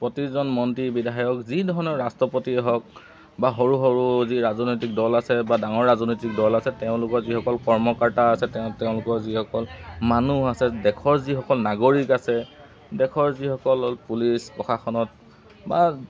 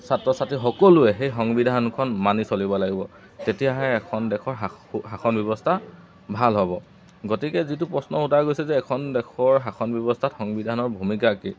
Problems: constant background noise